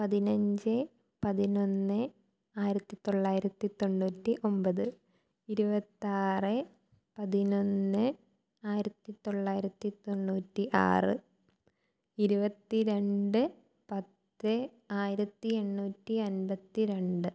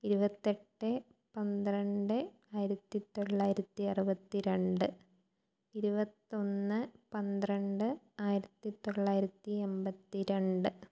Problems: low volume